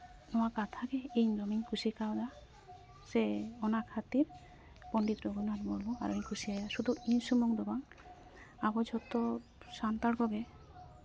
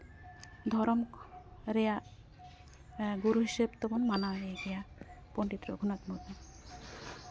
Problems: constant background noise